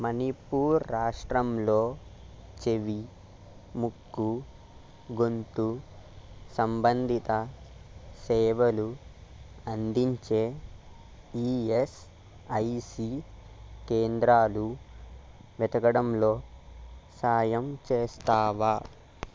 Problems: constant background noise